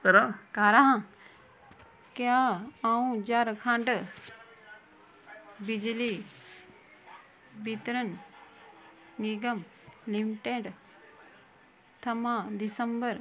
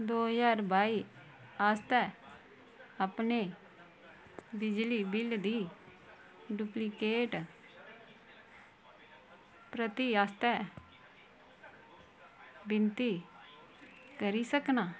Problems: constant background noise